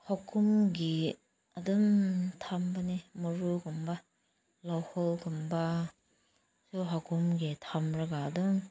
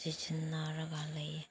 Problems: background sounds at intervals